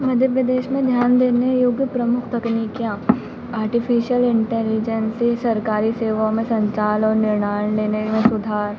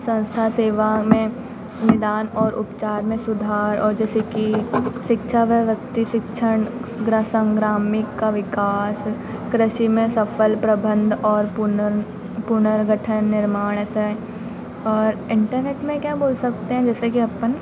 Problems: constant background noise